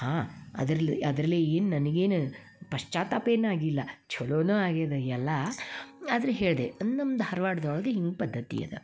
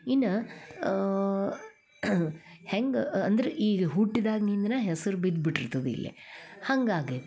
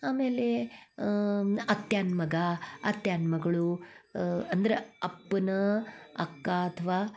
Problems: none marked